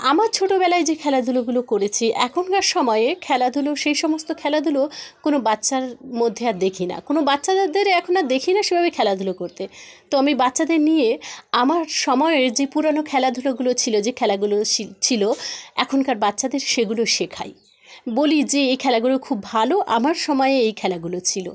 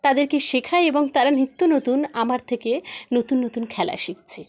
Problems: background conversations at intervals